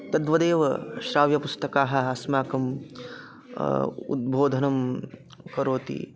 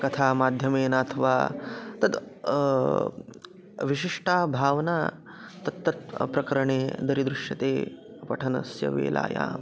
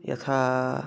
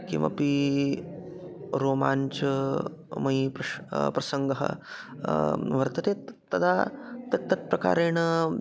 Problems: constant background noise, continuous background conversations